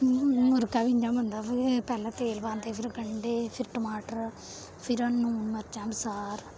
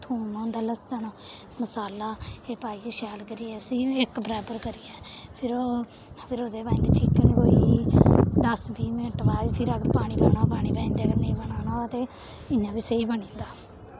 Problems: constant background noise